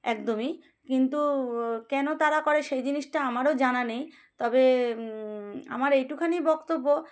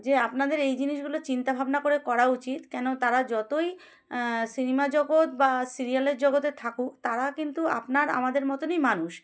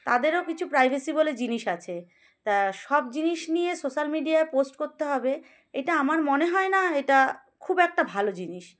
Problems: background sounds at intervals